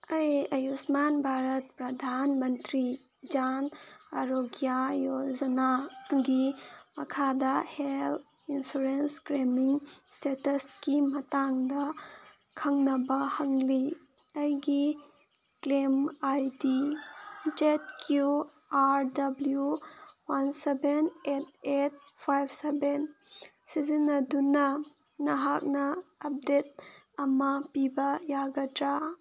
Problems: background sounds at intervals